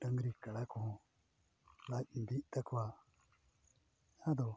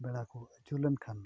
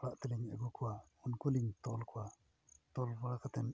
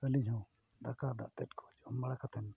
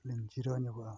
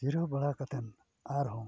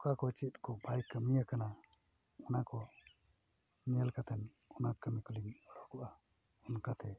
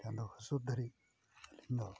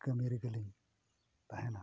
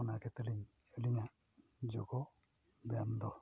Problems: background sounds at intervals, low volume